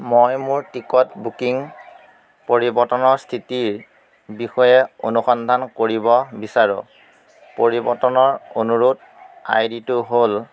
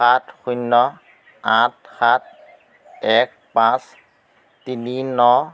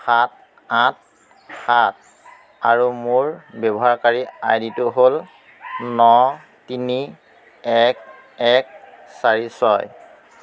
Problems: constant background noise